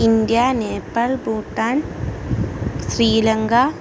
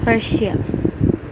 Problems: constant background noise